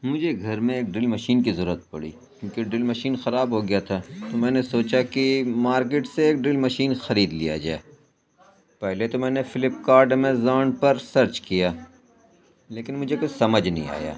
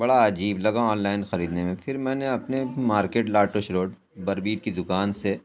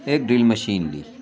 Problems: constant background noise, background conversations at intervals